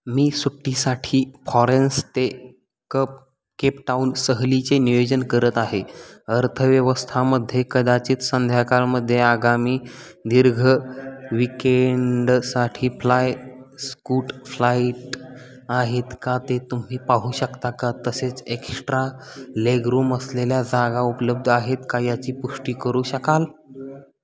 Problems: constant background noise, continuous background conversations